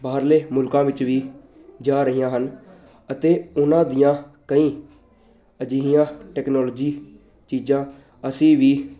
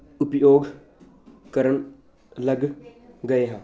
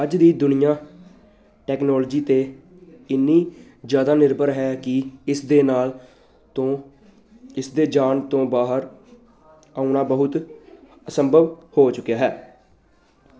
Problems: constant background noise